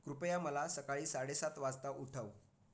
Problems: constant background noise, background conversations at intervals